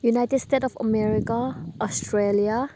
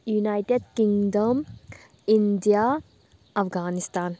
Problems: constant background noise, background conversations at intervals